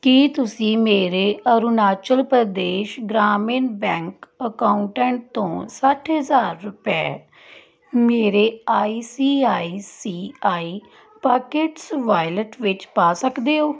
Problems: background sounds at intervals